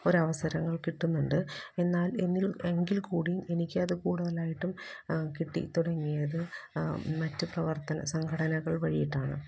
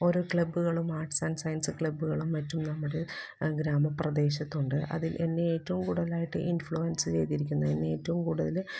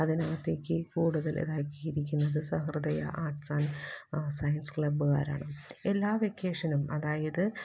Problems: background sounds at intervals, low volume